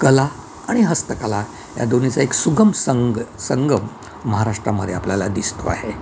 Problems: constant background noise